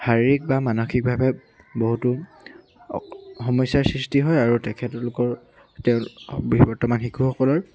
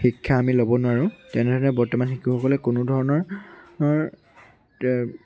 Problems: constant background noise, background conversations at intervals